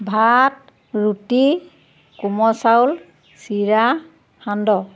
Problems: none marked